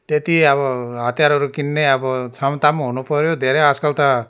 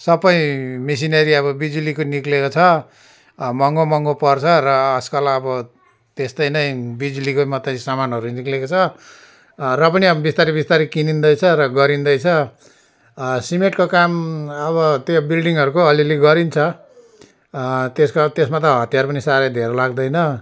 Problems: none marked